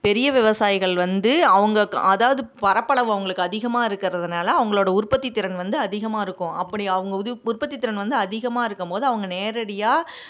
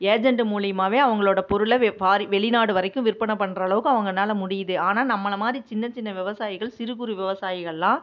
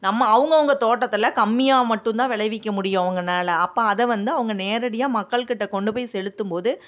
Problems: none marked